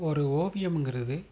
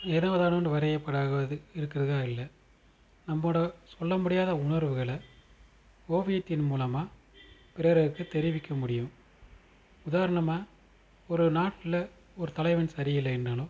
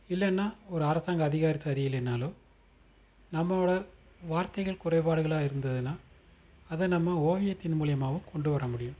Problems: constant background noise